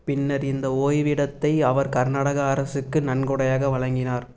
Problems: none marked